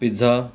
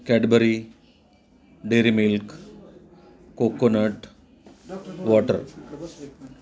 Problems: none marked